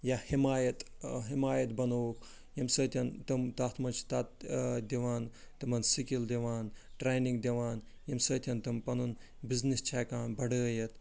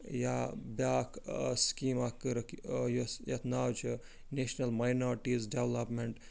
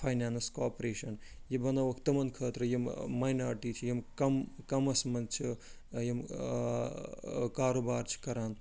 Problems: none marked